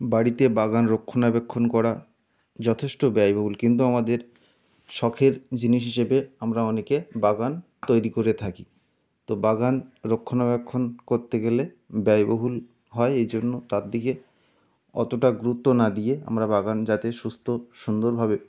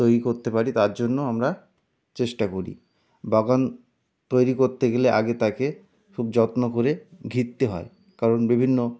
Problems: background sounds at intervals